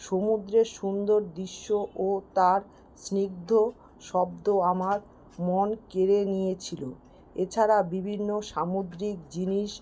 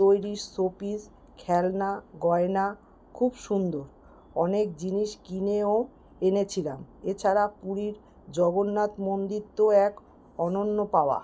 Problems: constant background noise